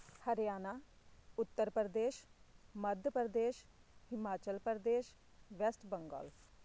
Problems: none marked